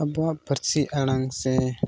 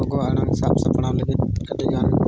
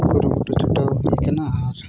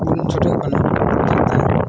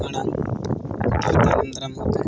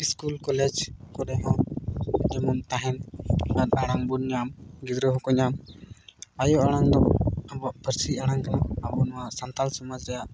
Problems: constant background noise